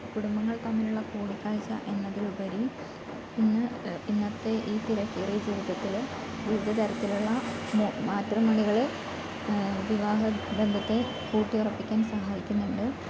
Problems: constant background noise